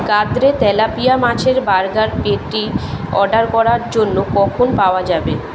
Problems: background conversations at intervals